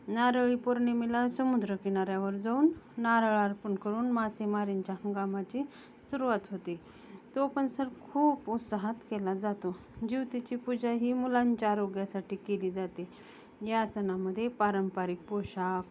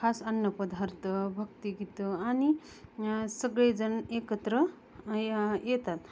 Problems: none marked